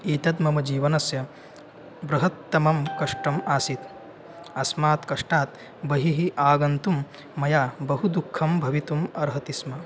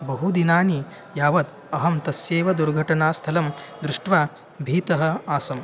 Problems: constant background noise